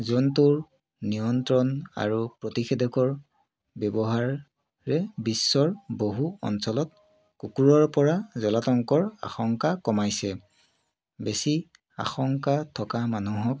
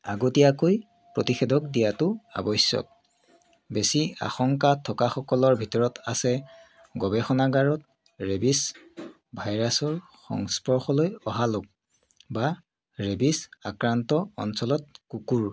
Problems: continuous background conversations